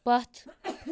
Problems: none marked